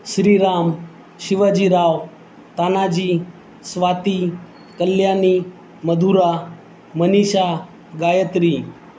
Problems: constant background noise